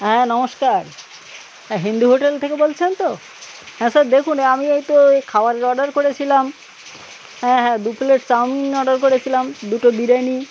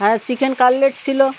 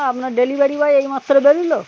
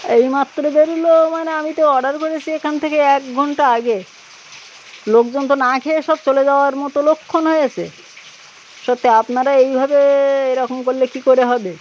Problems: constant background noise, background conversations at intervals